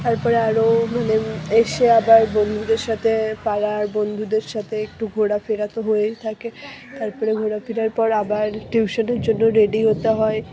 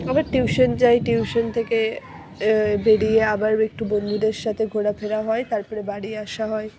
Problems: background sounds at intervals, continuous background conversations